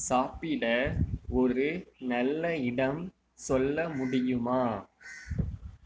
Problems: low volume